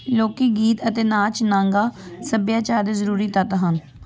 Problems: constant background noise